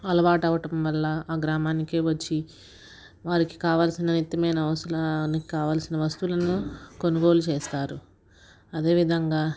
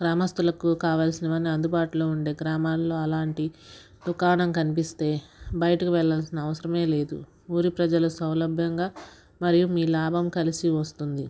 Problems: constant background noise